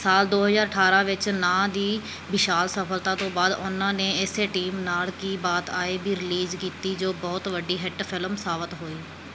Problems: background sounds at intervals